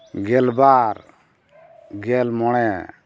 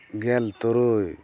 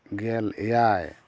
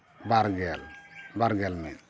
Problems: background sounds at intervals